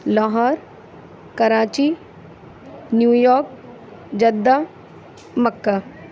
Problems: none marked